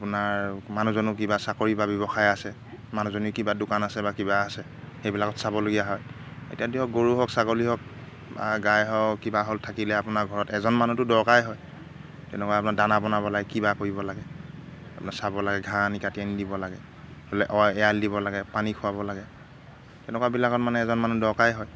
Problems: none marked